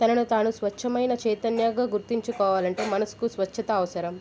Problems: background sounds at intervals